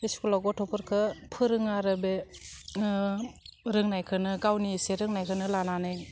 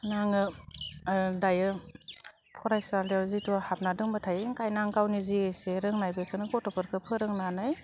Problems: none marked